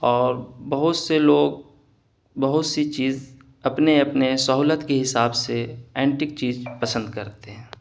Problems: none marked